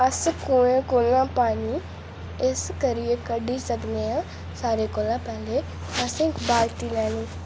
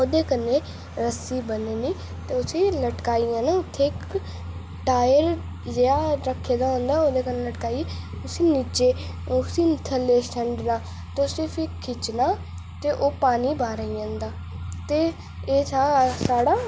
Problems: constant background noise